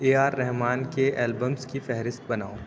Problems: none marked